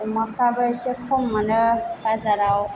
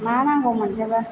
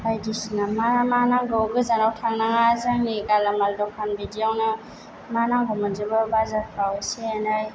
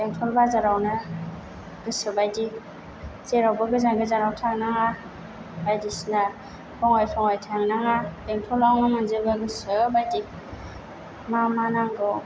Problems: background sounds at intervals